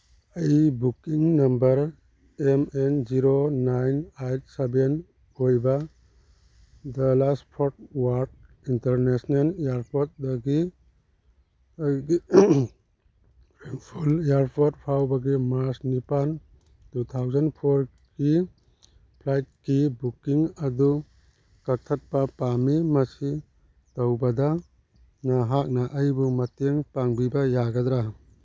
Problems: none marked